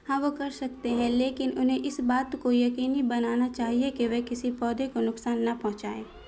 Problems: constant background noise